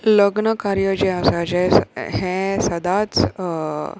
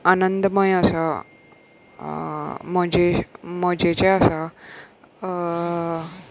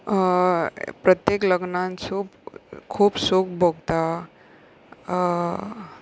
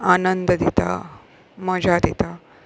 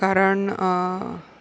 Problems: background sounds at intervals